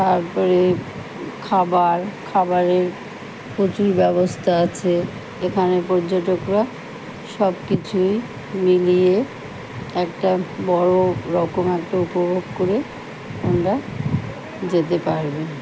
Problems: constant background noise